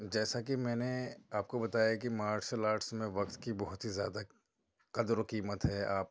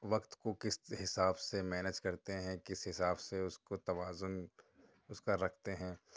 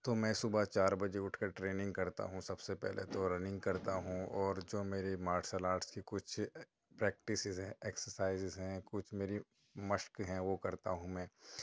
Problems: constant background noise